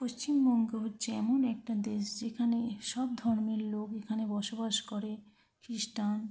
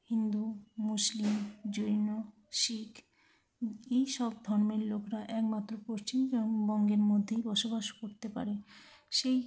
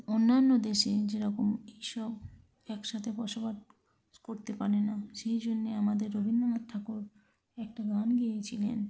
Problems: background sounds at intervals, continuous background conversations, low volume